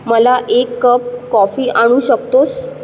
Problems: constant background noise